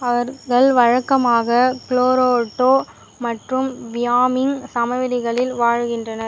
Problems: constant background noise